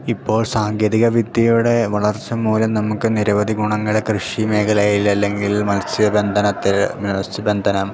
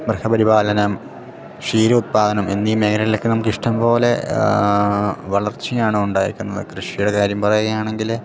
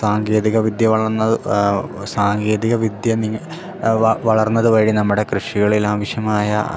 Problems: none marked